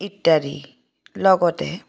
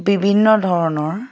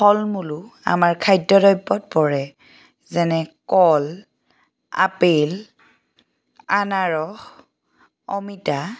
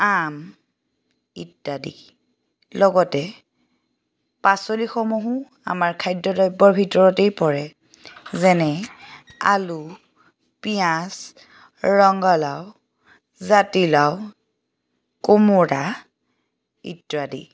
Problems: background sounds at intervals